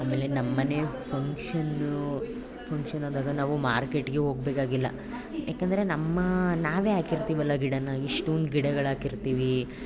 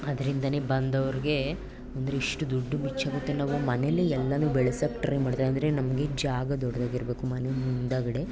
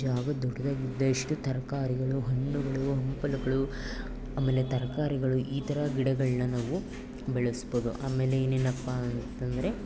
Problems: none marked